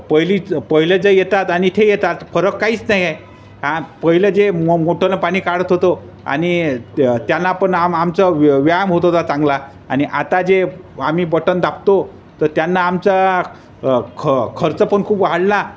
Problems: constant background noise